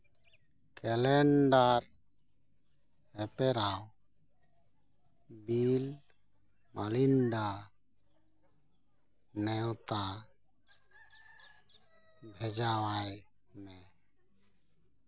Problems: constant background noise